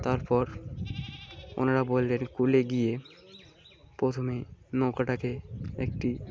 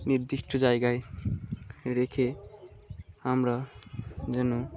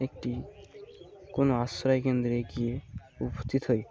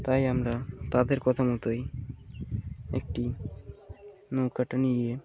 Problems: none marked